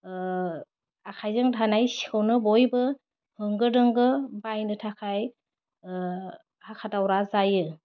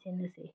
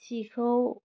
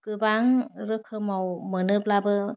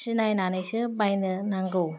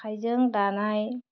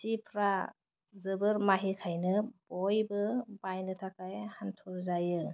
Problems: constant background noise